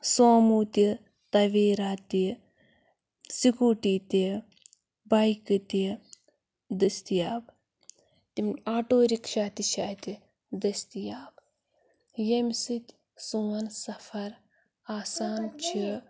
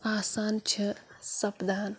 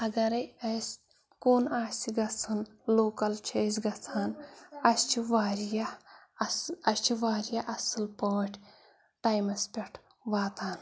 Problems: none marked